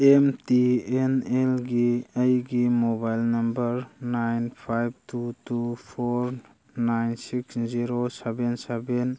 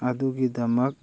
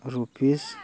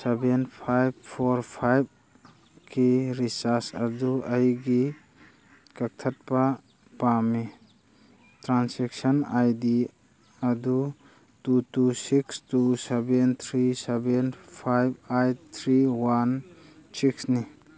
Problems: background conversations at intervals